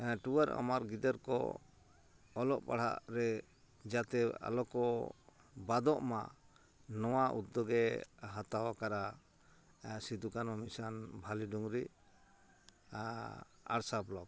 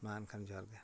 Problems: none marked